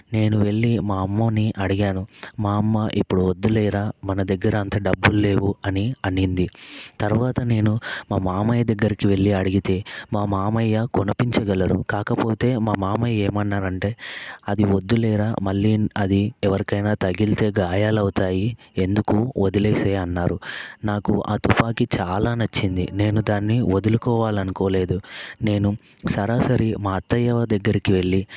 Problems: constant background noise